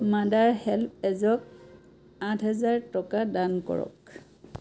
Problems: background conversations at intervals